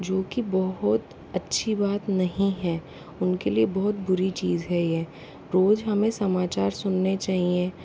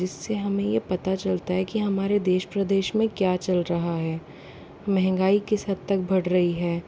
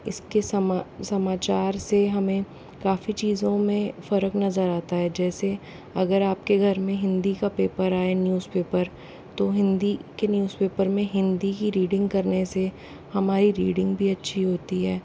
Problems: constant background noise, low volume